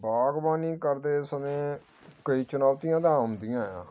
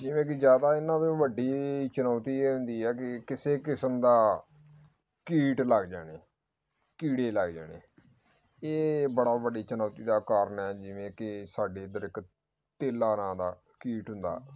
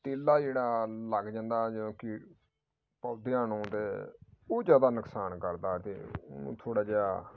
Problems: background sounds at intervals